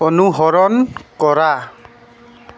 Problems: constant background noise